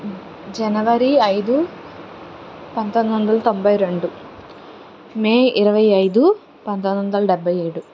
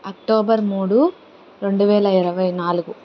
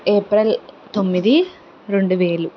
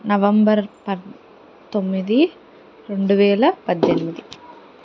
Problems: none marked